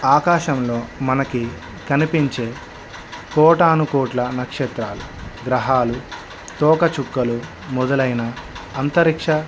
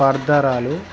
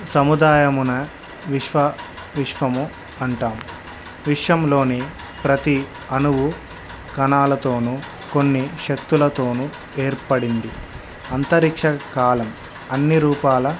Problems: constant background noise